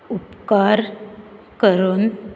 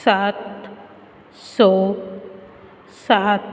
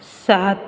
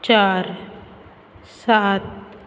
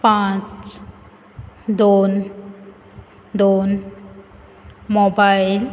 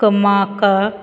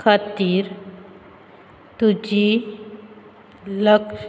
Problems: constant background noise